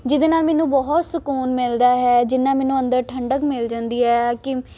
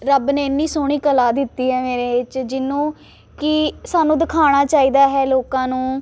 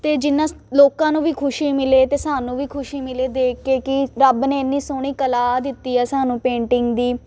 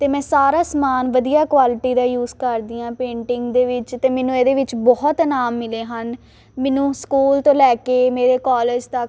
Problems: constant background noise